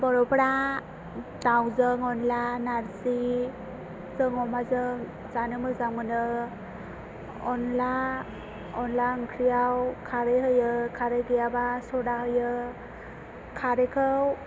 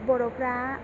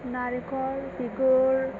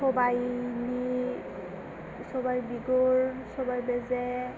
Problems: constant background noise